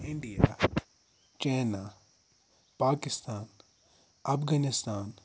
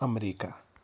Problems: background sounds at intervals